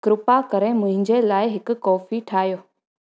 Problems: none marked